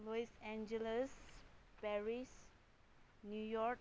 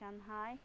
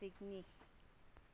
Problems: none marked